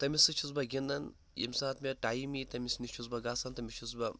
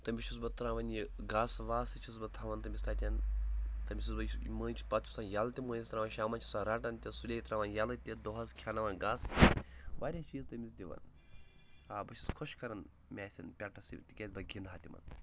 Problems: none marked